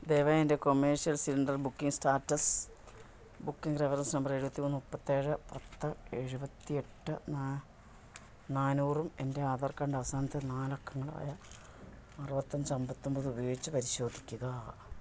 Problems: low volume